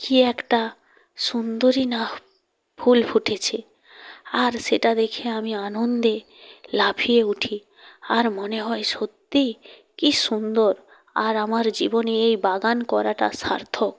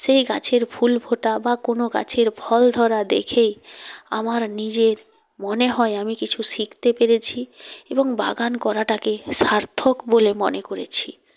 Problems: none marked